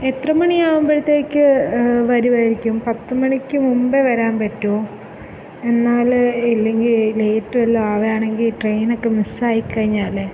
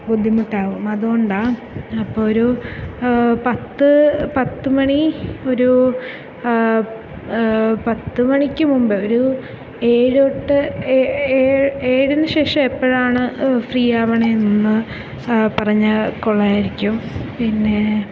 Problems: none marked